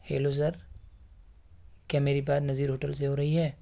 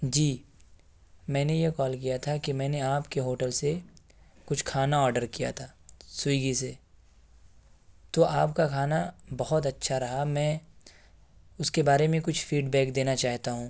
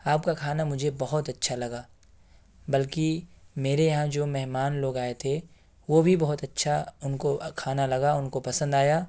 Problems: background sounds at intervals